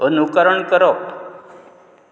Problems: constant background noise